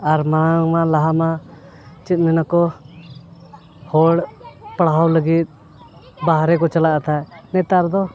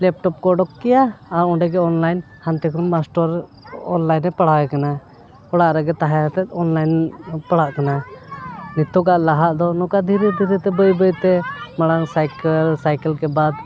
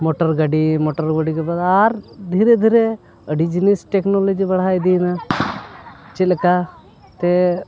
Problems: constant background noise